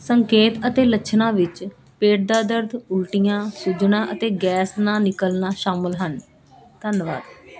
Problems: constant background noise